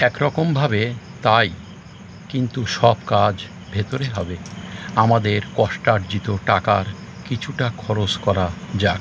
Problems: constant background noise